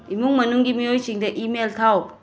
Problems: constant background noise